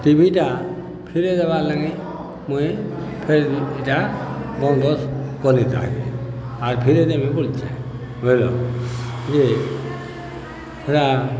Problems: constant background noise, continuous background conversations